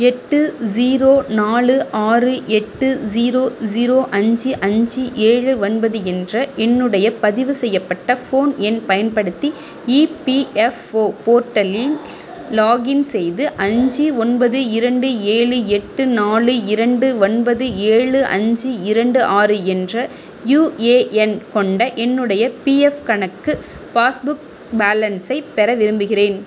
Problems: constant background noise